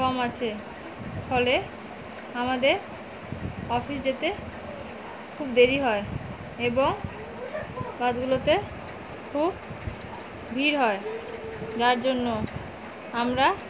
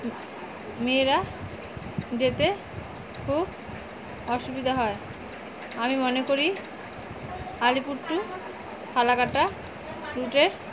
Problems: constant background noise